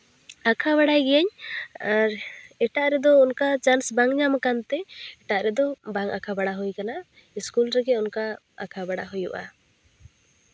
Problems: none marked